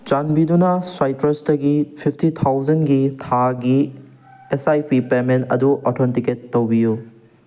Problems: background sounds at intervals